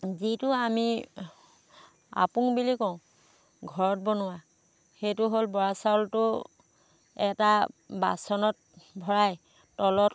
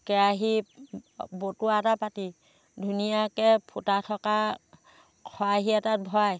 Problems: constant background noise